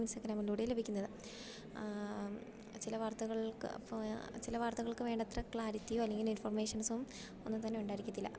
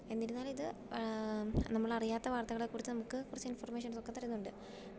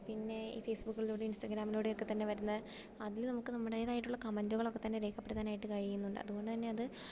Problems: low volume